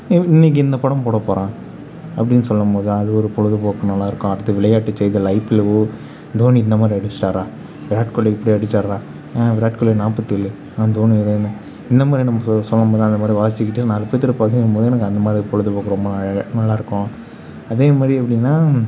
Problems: none marked